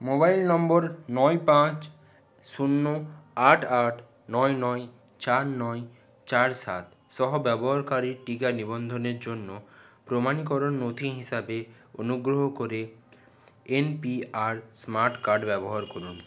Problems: none marked